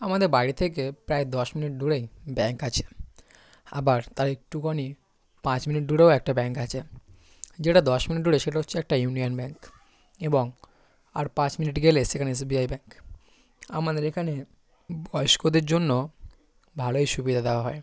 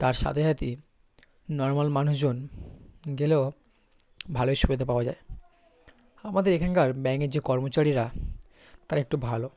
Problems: constant background noise